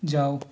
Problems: none marked